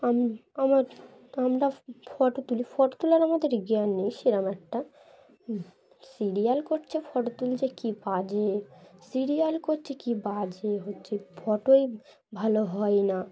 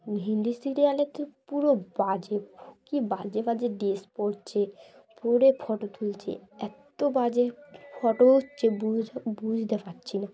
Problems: constant background noise, continuous background conversations